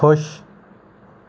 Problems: background sounds at intervals